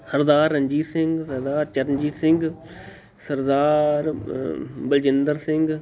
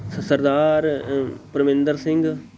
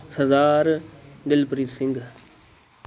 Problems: continuous background conversations